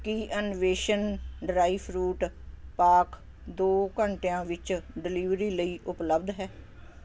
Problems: constant background noise